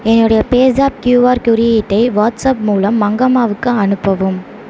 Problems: constant background noise